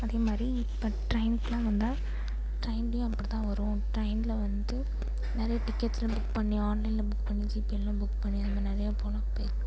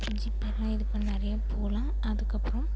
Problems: constant background noise